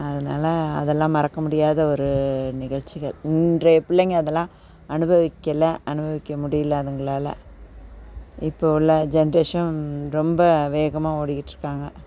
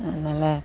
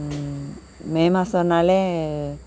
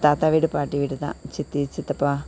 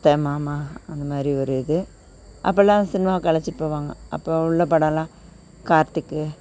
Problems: none marked